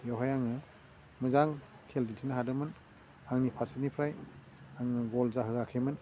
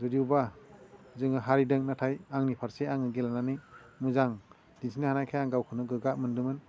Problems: low volume